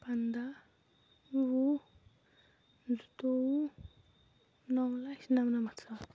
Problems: low volume